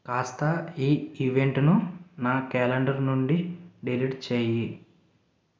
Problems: none marked